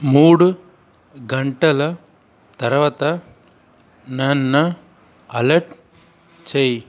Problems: constant background noise